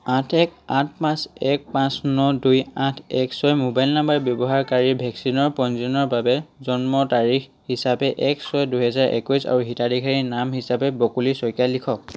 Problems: background sounds at intervals